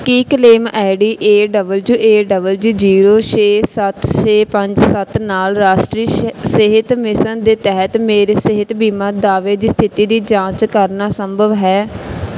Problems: background sounds at intervals